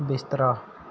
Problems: none marked